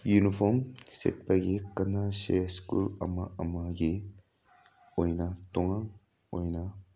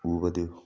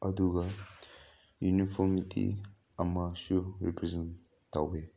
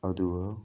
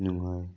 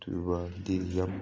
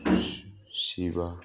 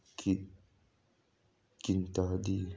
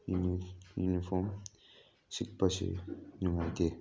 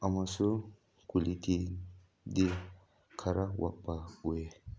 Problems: none marked